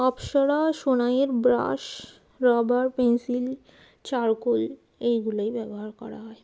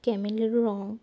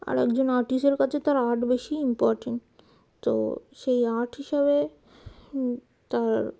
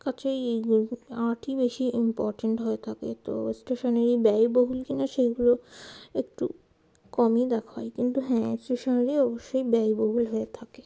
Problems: none marked